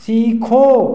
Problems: none marked